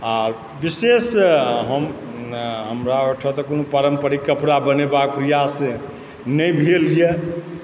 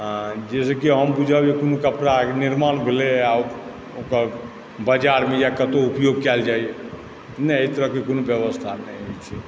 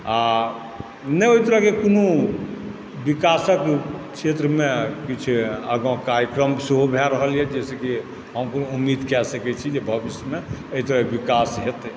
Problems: constant background noise